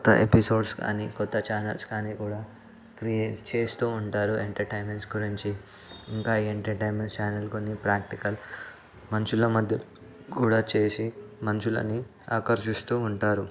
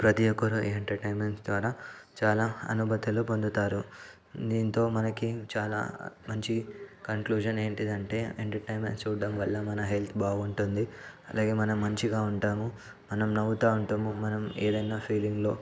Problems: constant background noise, background conversations at intervals